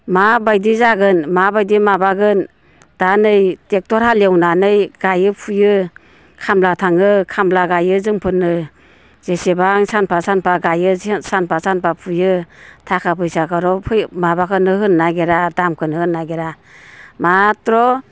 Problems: constant background noise